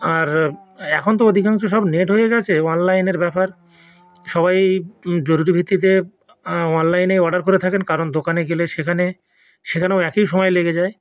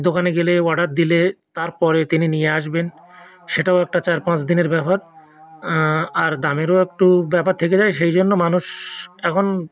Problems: background conversations at intervals